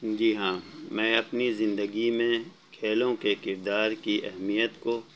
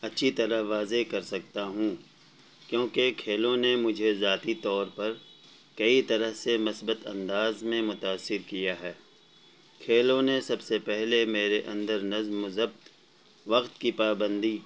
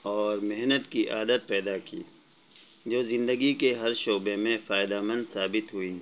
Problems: constant background noise, low volume